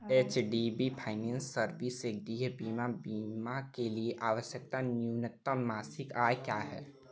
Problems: none marked